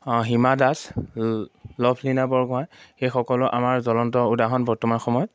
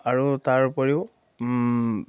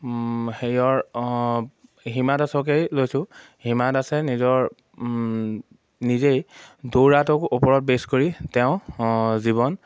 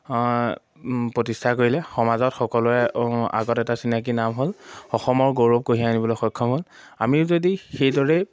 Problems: none marked